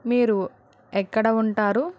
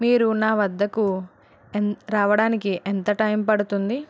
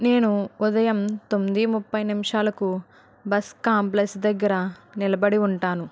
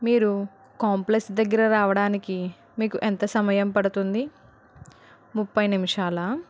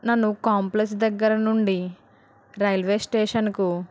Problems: none marked